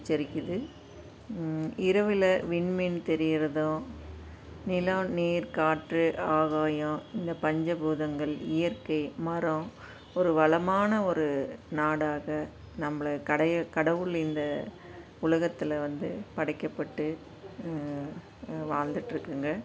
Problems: constant background noise